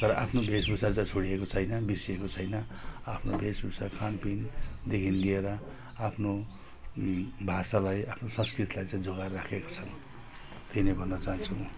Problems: constant background noise